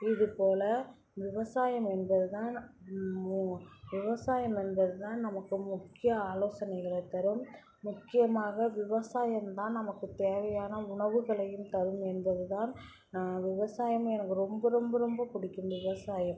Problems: background sounds at intervals, background conversations at intervals